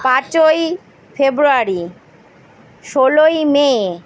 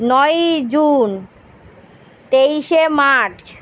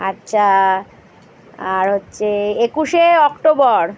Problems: none marked